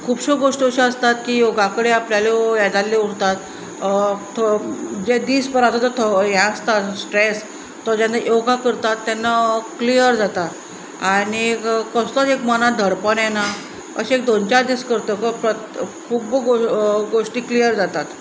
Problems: none marked